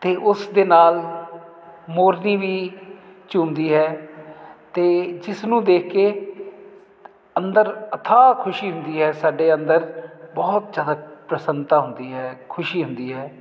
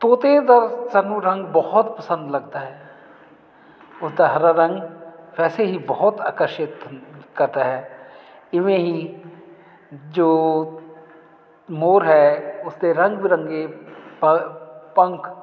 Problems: none marked